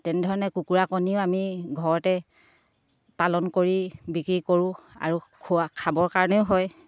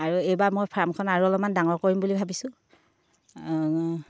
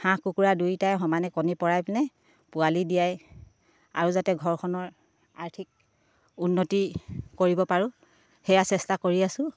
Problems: none marked